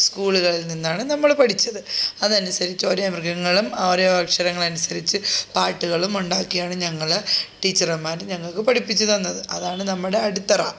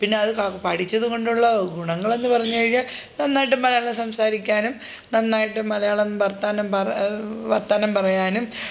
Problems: none marked